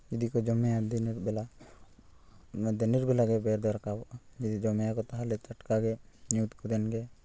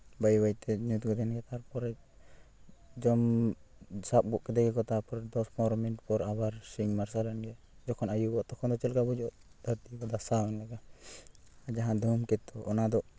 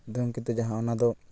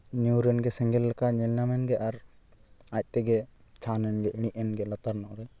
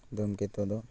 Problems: constant background noise